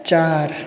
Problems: constant background noise, background conversations at intervals